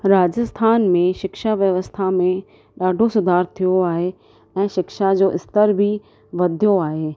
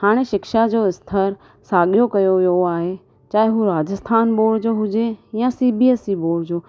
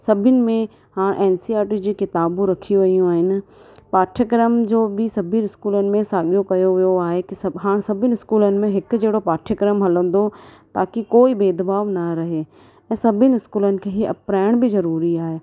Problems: constant background noise